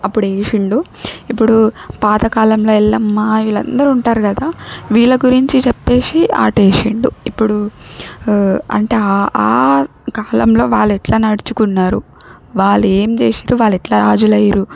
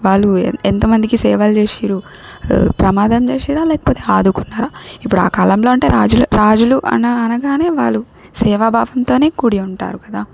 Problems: background sounds at intervals